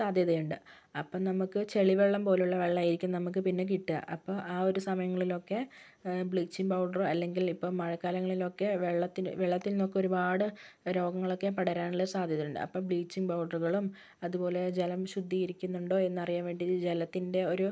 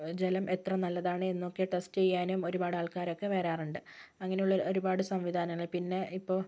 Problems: low volume